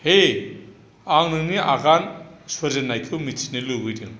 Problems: constant background noise